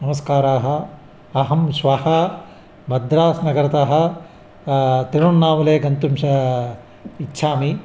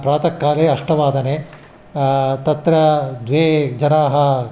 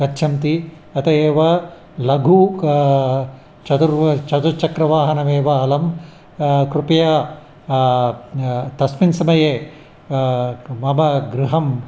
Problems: background sounds at intervals